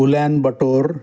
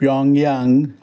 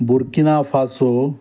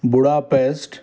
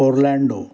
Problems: background sounds at intervals